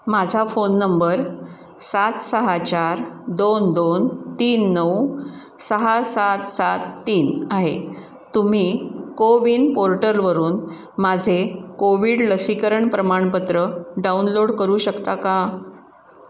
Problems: constant background noise